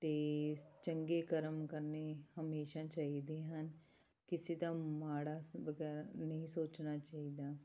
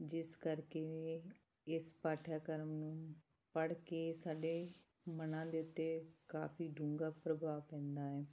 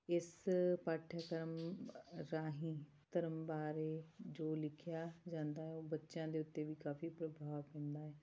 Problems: background sounds at intervals